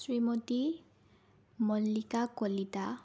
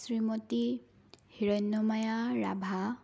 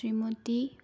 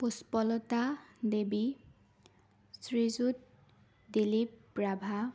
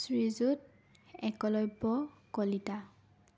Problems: background sounds at intervals